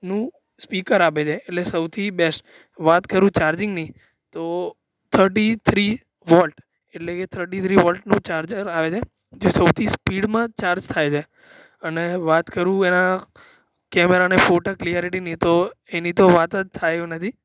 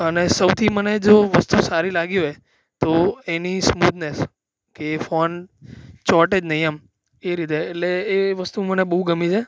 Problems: background sounds at intervals